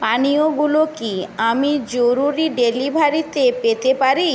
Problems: constant background noise